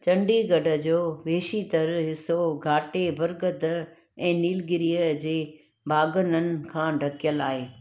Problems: background sounds at intervals